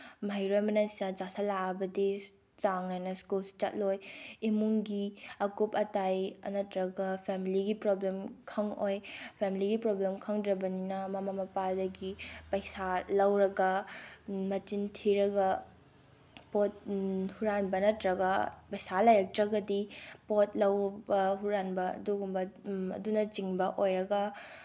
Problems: none marked